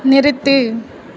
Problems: constant background noise